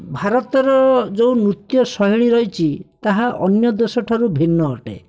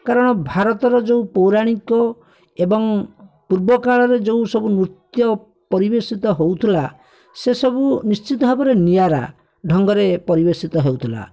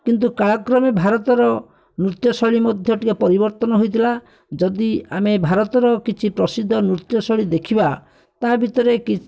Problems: none marked